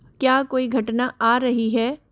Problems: constant background noise